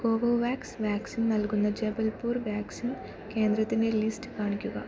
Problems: low volume